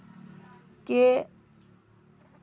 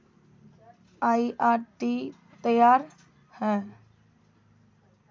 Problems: background sounds at intervals